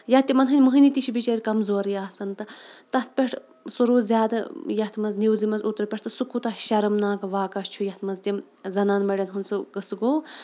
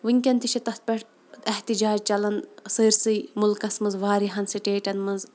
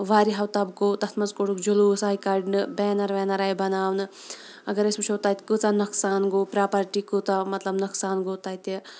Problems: background sounds at intervals